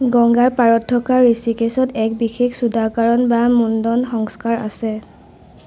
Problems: none marked